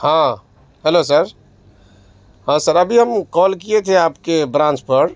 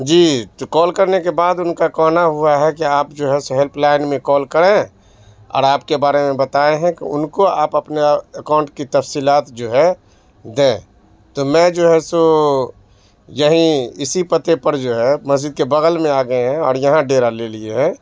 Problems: background sounds at intervals, background conversations at intervals